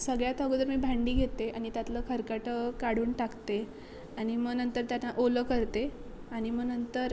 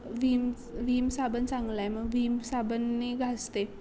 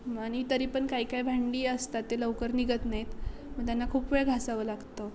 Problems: constant background noise, background conversations at intervals